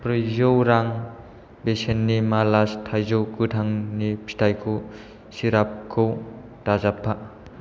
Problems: none marked